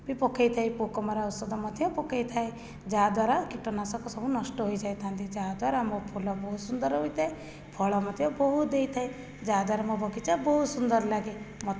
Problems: low volume